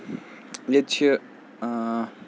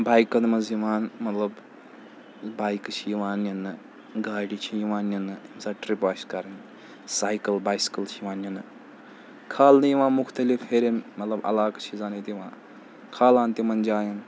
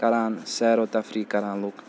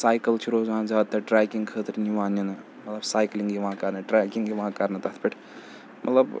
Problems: none marked